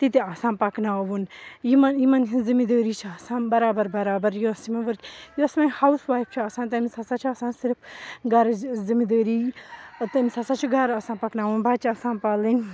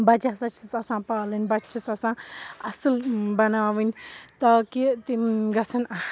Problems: background sounds at intervals, background conversations at intervals